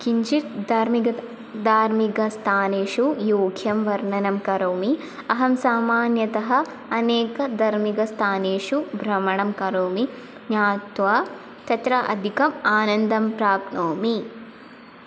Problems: constant background noise